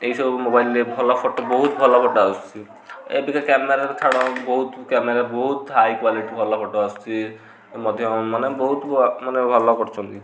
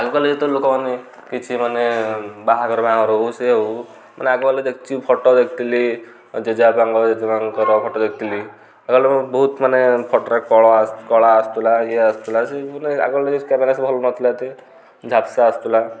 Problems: background sounds at intervals, background conversations at intervals